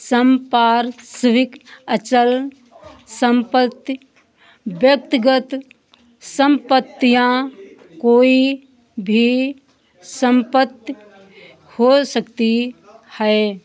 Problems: none marked